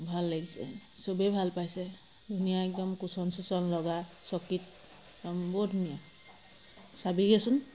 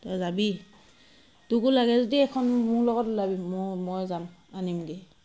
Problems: constant background noise